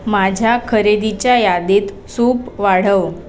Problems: background sounds at intervals, background conversations at intervals